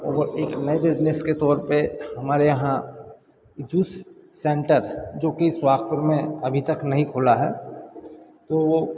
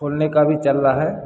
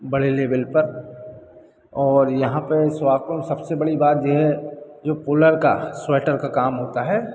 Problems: background sounds at intervals